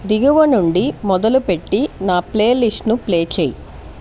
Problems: constant background noise